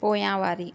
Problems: none marked